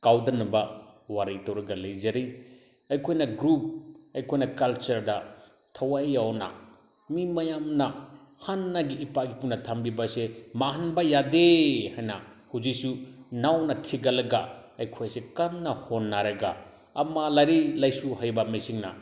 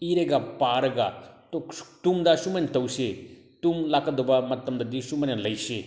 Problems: none marked